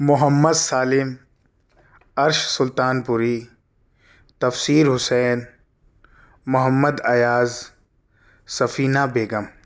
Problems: none marked